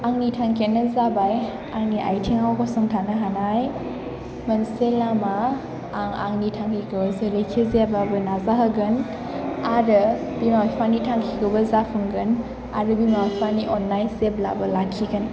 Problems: background sounds at intervals